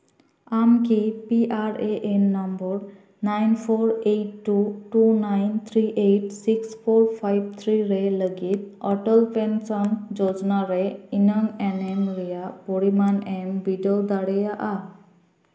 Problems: background sounds at intervals